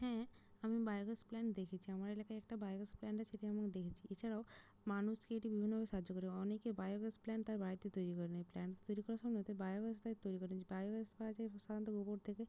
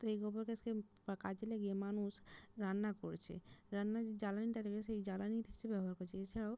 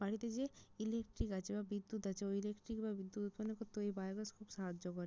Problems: none marked